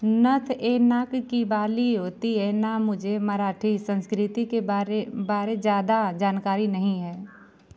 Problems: none marked